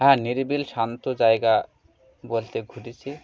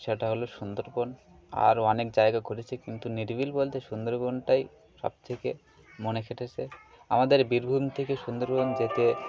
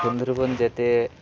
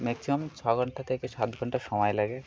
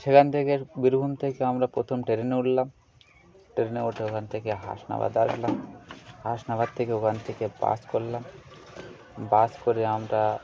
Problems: constant background noise, continuous background conversations